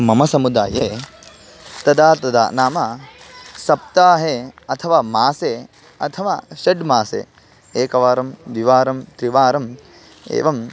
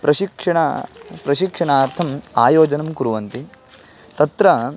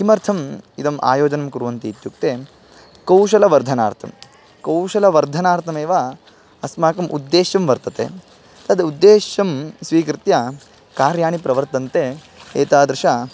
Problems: background sounds at intervals